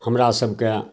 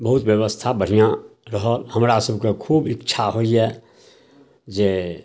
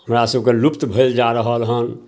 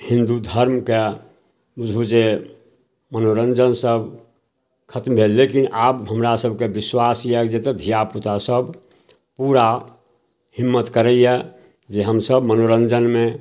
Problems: none marked